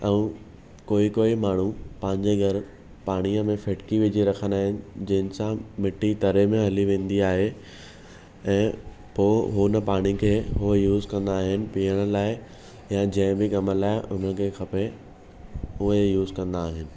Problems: none marked